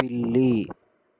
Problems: none marked